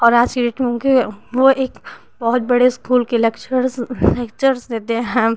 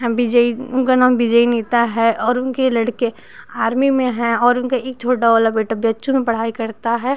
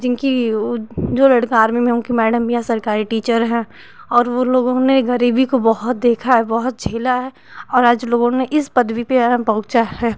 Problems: constant background noise